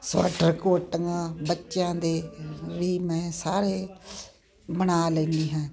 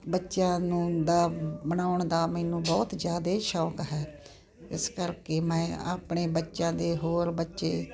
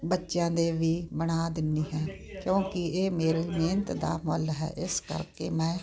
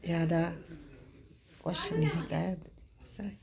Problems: constant background noise